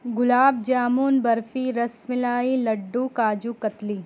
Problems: constant background noise